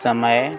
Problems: constant background noise, background conversations at intervals